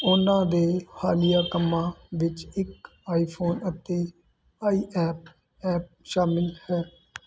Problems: none marked